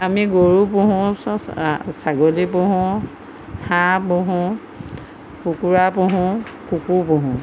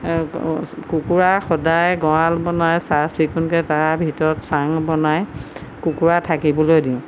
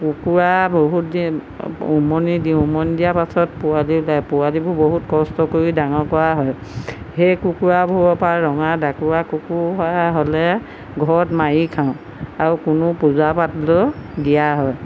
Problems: constant background noise